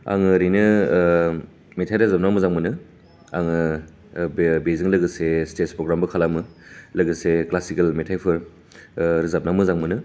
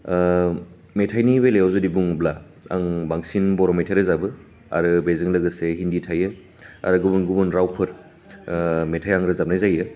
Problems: none marked